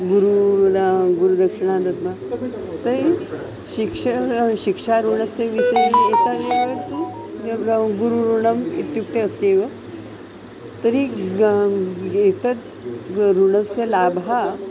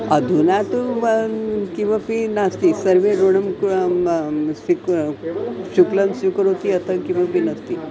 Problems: constant background noise, continuous background conversations